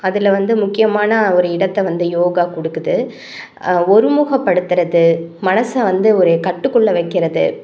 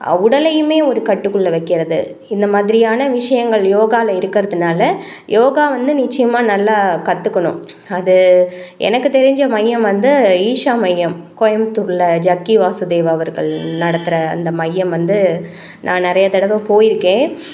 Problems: none marked